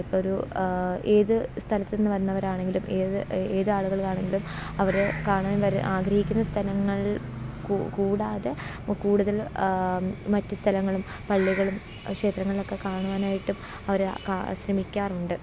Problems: none marked